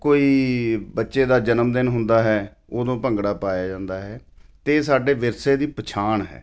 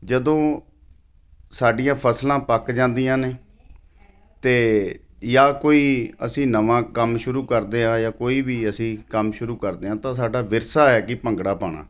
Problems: none marked